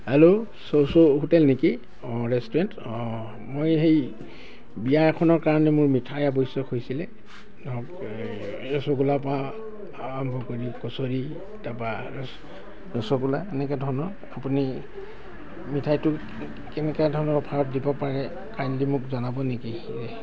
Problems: constant background noise